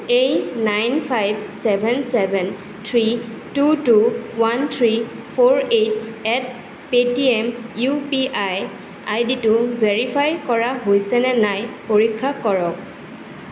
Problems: constant background noise